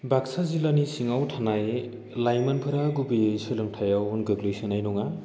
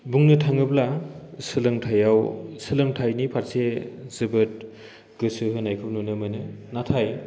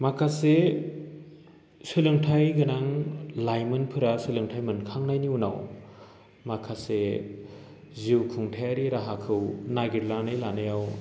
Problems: none marked